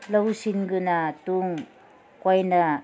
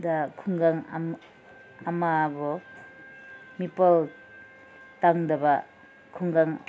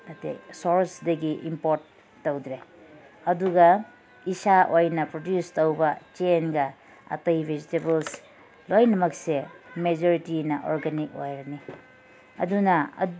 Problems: none marked